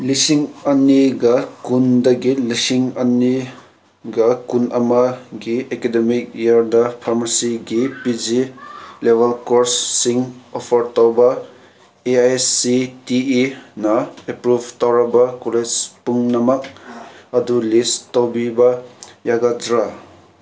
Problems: none marked